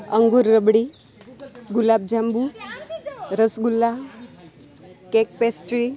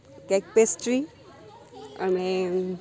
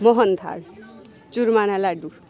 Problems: constant background noise